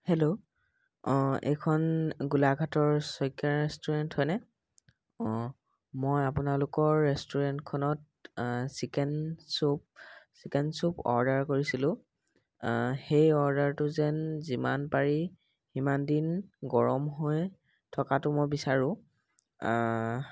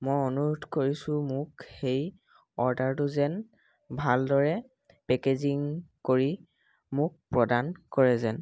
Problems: background sounds at intervals